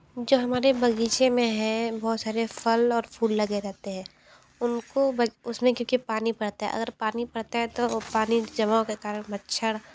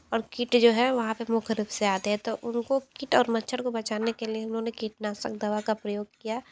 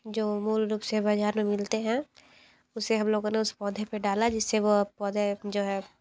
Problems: none marked